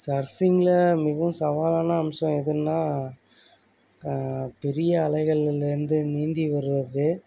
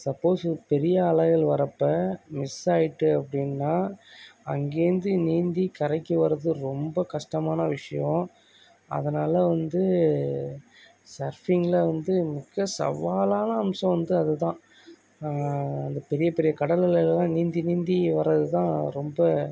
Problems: background conversations at intervals